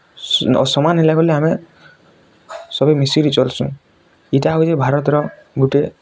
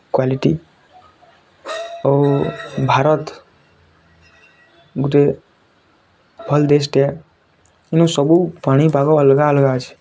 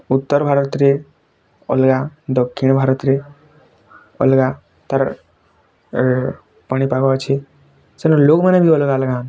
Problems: none marked